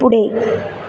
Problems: none marked